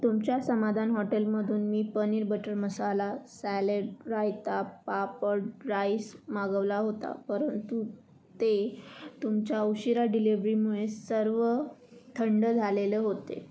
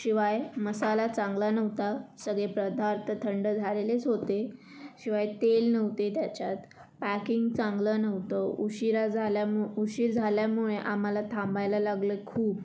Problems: constant background noise